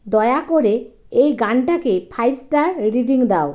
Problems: none marked